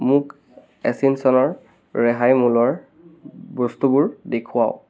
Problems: background conversations at intervals